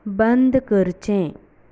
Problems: background sounds at intervals